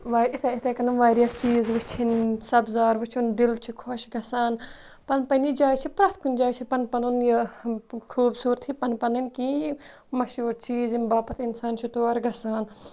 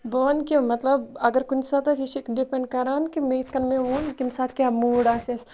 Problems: constant background noise